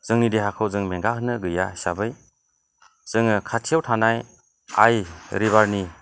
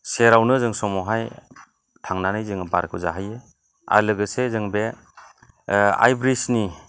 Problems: low volume